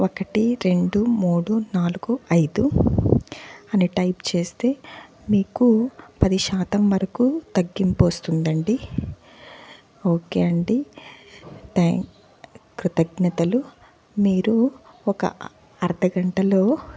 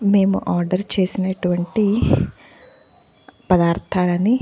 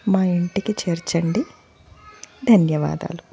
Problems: background sounds at intervals, continuous background conversations